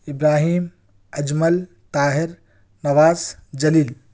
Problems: none marked